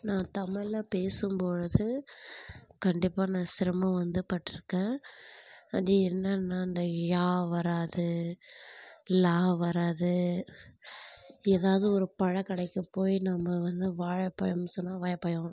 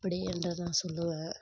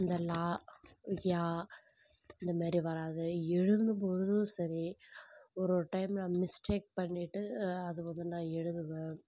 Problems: none marked